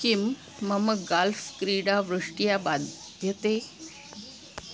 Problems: constant background noise